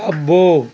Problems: constant background noise